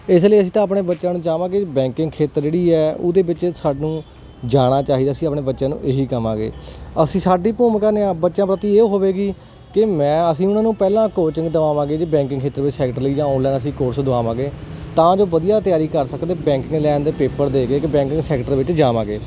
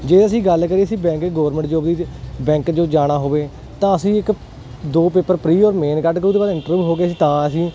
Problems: none marked